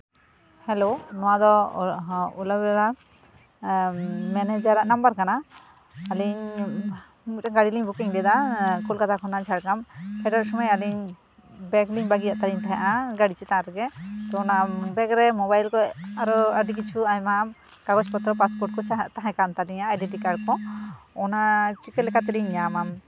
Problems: background sounds at intervals